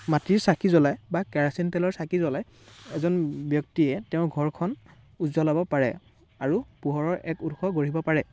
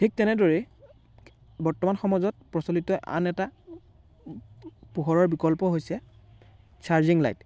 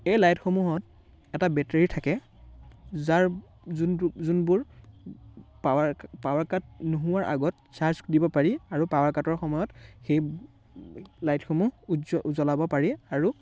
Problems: background sounds at intervals, background conversations at intervals